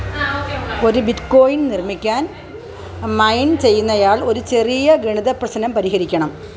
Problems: constant background noise, background conversations at intervals